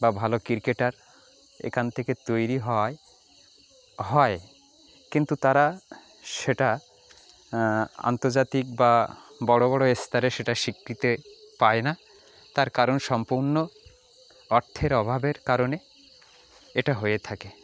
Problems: background sounds at intervals, background conversations at intervals